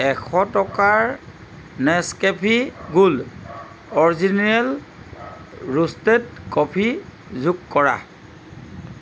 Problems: constant background noise